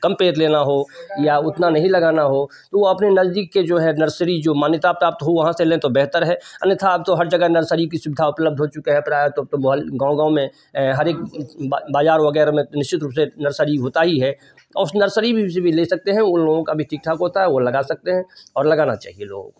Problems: none marked